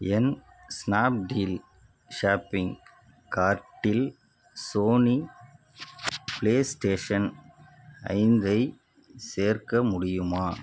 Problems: background sounds at intervals